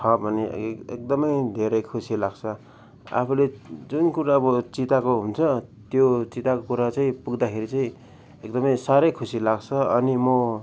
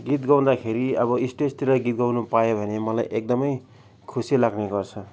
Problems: none marked